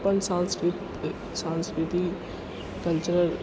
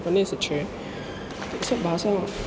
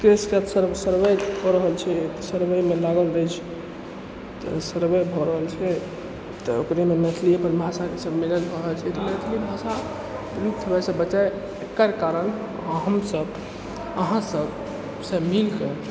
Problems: background sounds at intervals